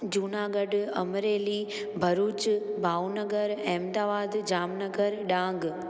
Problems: constant background noise, echo